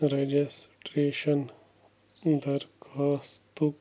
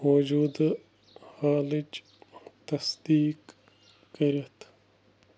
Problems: none marked